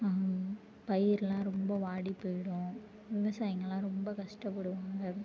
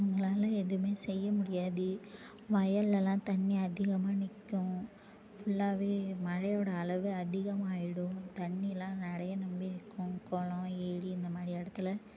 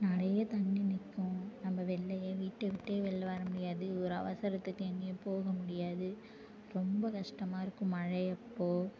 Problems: low volume